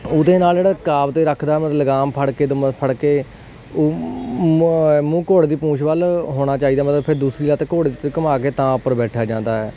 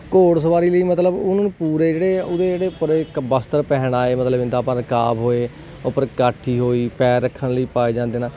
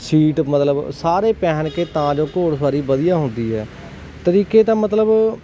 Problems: none marked